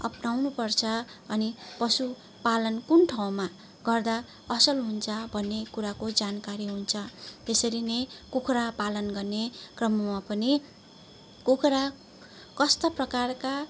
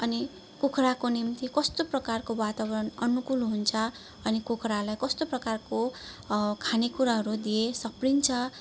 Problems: none marked